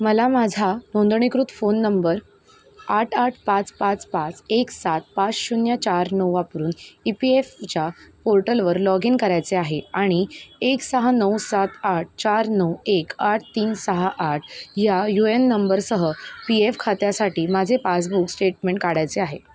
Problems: none marked